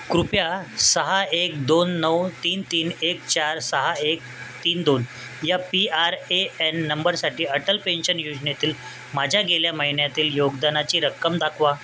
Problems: constant background noise